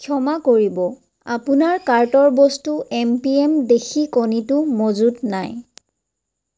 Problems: none marked